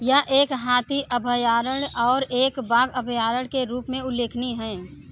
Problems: continuous background conversations